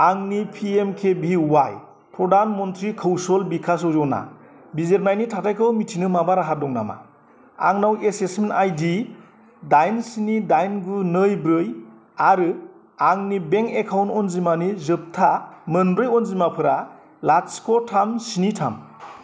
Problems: constant background noise